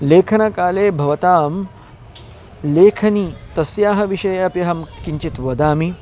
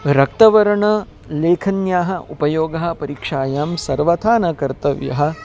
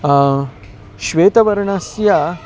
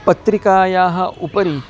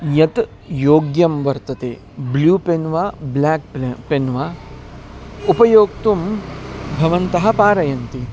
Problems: background sounds at intervals